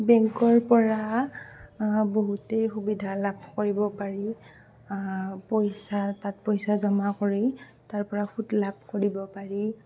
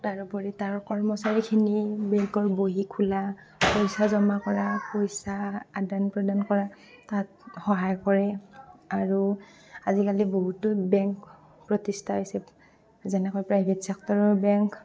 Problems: constant background noise, background conversations at intervals